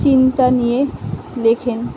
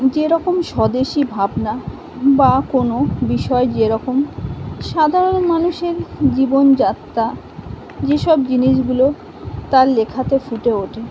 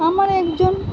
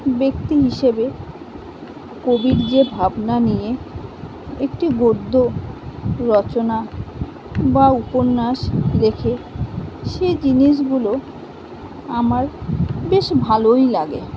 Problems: none marked